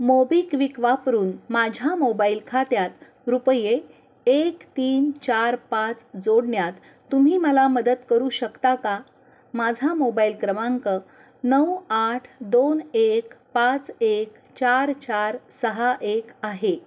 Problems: none marked